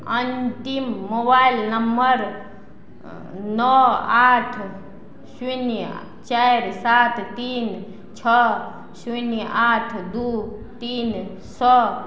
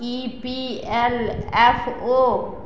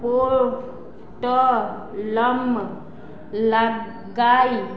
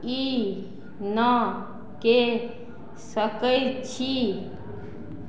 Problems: background conversations at intervals